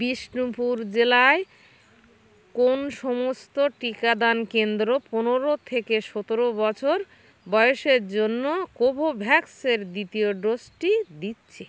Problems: none marked